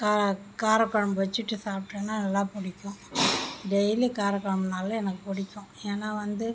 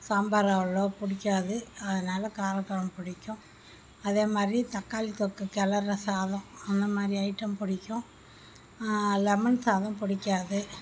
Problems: background sounds at intervals